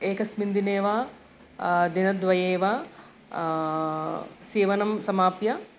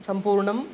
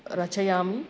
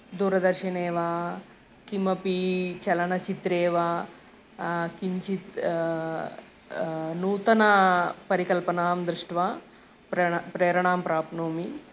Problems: none marked